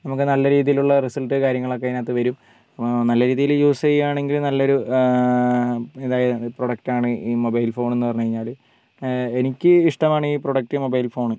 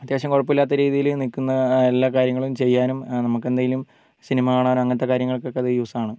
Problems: background sounds at intervals, low volume